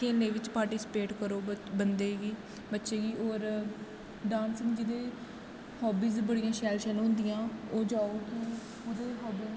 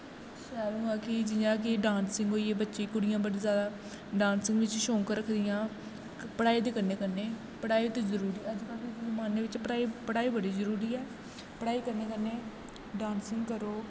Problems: constant background noise, echo